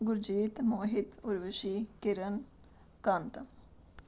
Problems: background sounds at intervals